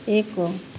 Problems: constant background noise